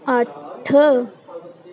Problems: none marked